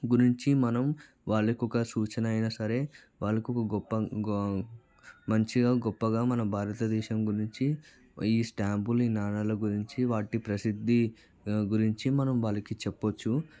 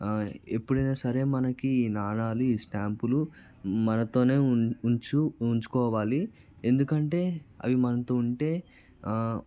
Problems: background conversations at intervals, low volume